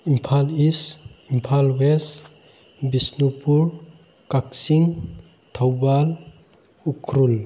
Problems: constant background noise